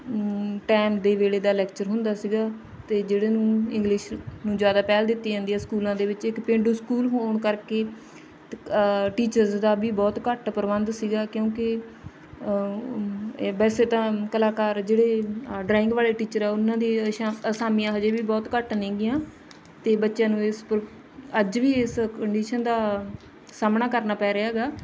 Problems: background sounds at intervals, background conversations at intervals